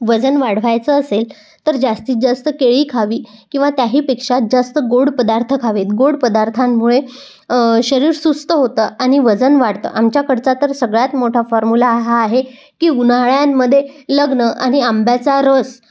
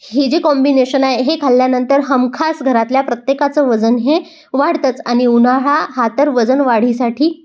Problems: none marked